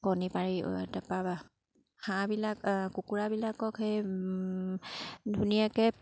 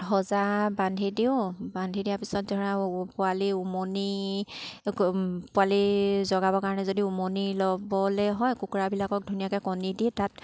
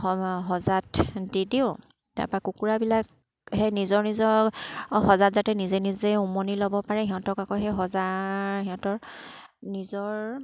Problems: none marked